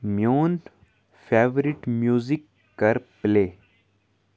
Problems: background sounds at intervals, background conversations at intervals